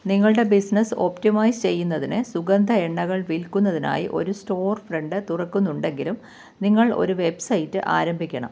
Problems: constant background noise